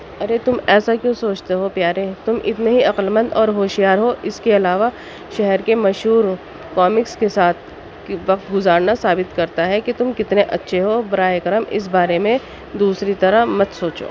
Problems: background sounds at intervals, background conversations at intervals